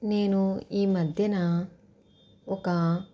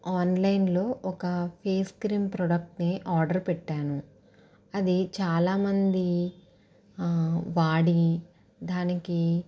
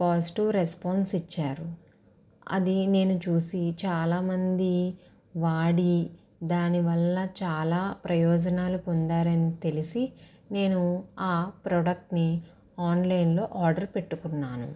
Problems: constant background noise